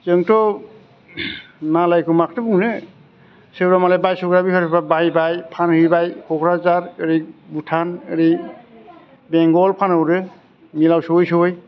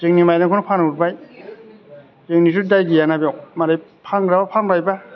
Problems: none marked